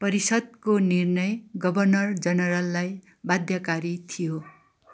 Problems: none marked